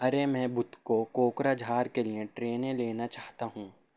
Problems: none marked